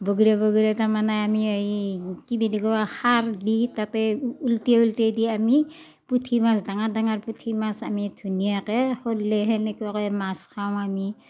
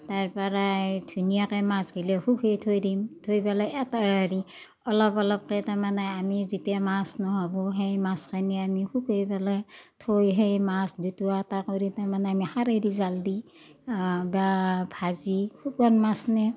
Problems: none marked